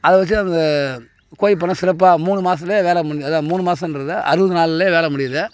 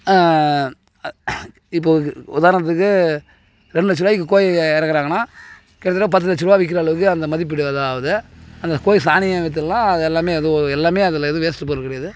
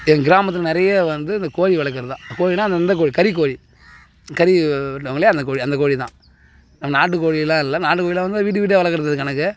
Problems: constant background noise